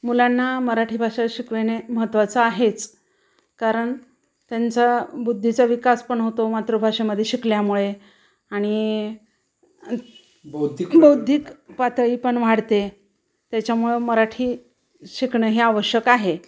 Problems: background sounds at intervals, background conversations at intervals